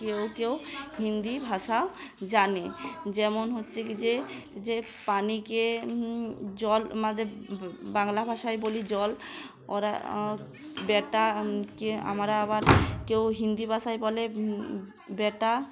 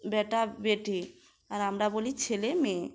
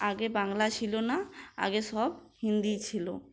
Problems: constant background noise